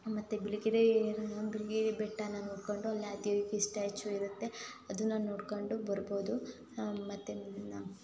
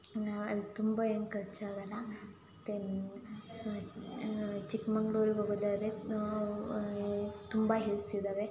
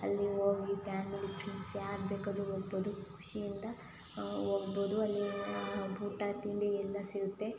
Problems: none marked